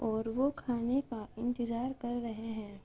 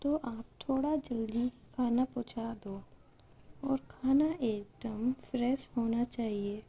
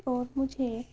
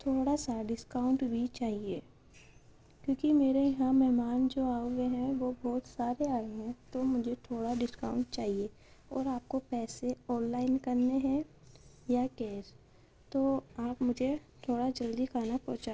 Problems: constant background noise, low volume